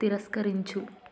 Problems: none marked